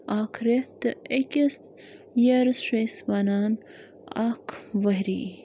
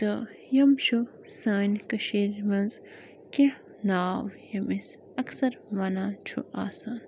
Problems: constant background noise